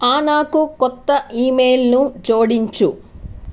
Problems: constant background noise